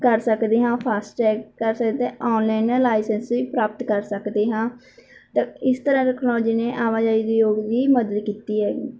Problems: background sounds at intervals